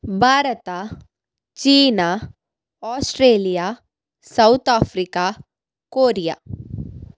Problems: none marked